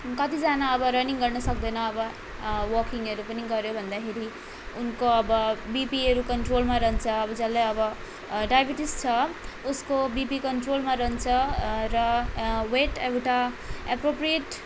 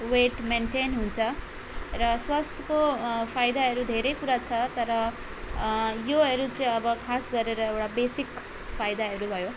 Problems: none marked